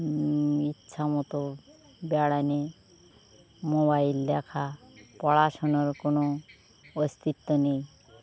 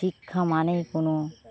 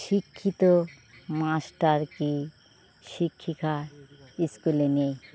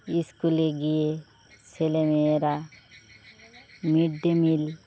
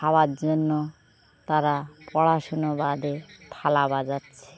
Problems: none marked